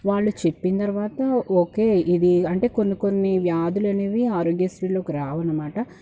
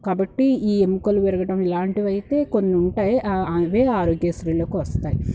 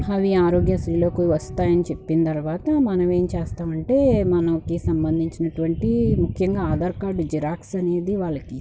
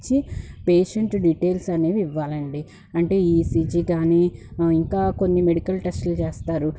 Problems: background sounds at intervals